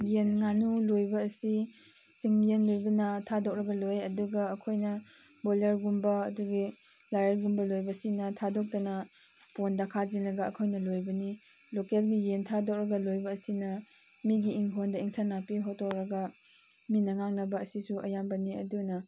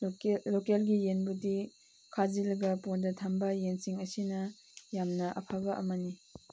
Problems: constant background noise